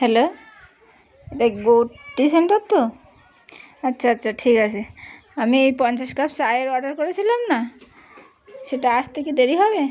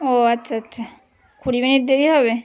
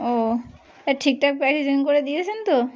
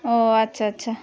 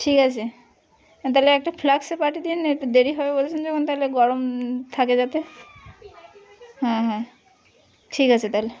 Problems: constant background noise, background conversations at intervals